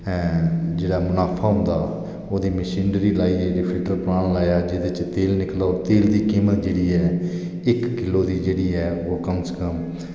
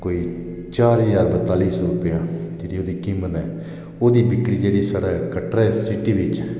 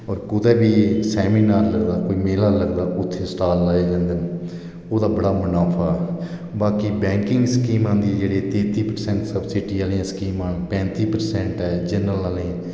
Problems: echo